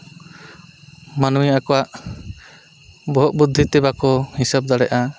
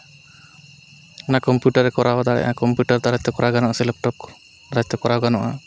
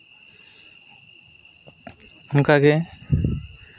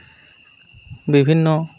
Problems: constant background noise